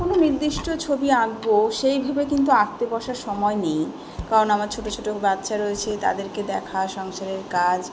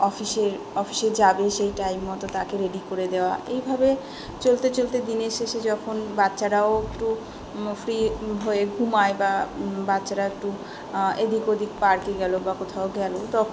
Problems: background sounds at intervals, continuous background conversations